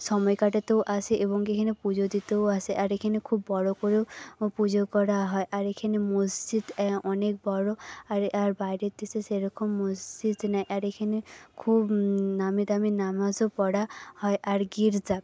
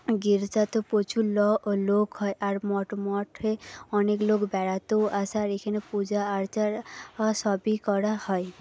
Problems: background sounds at intervals, background conversations at intervals